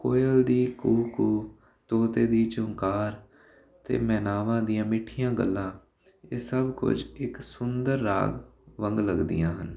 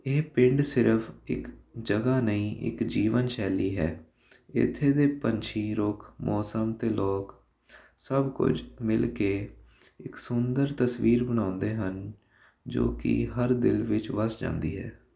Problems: constant background noise